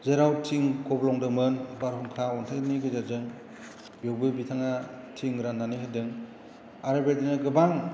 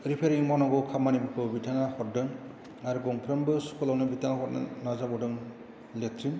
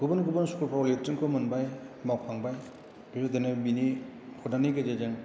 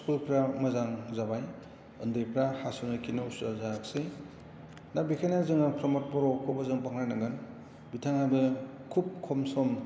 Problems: none marked